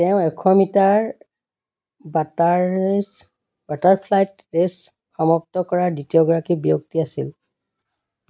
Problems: background sounds at intervals